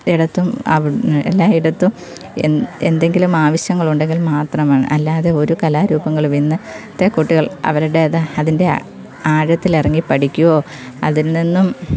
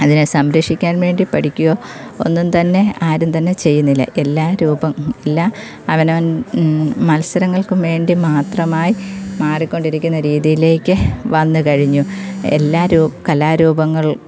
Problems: none marked